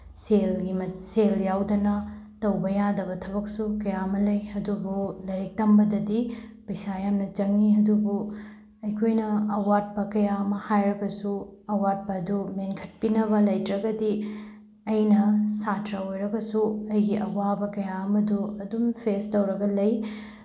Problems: none marked